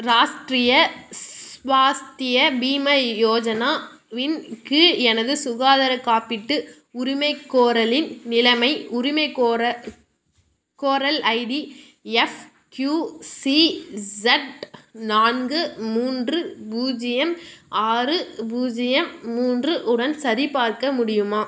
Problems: constant background noise